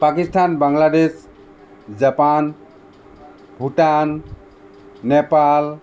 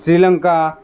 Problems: constant background noise